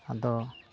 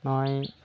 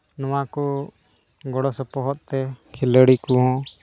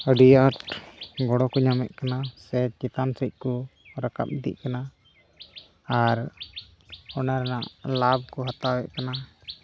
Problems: constant background noise